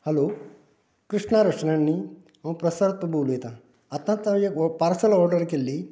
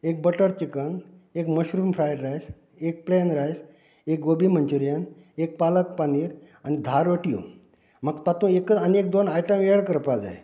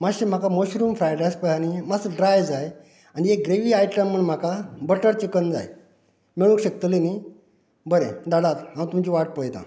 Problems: constant background noise